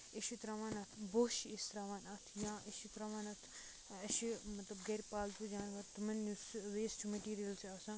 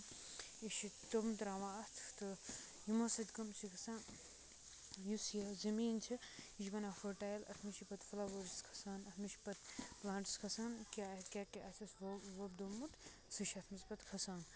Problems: background sounds at intervals, low volume